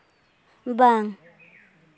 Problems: none marked